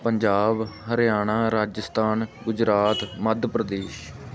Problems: continuous background conversations